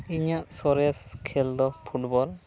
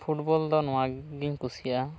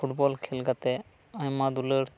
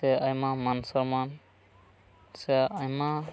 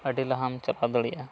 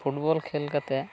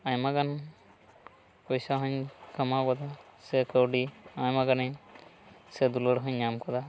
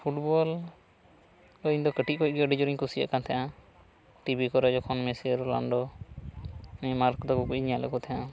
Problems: background sounds at intervals